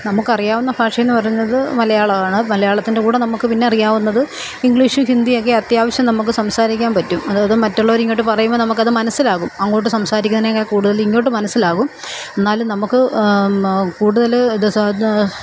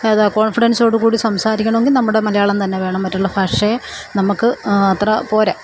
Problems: constant background noise